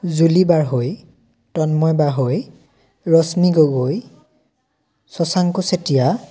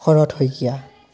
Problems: continuous background conversations